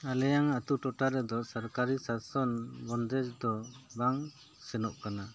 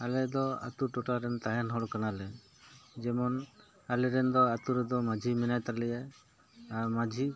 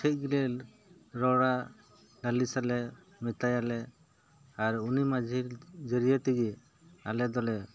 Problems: none marked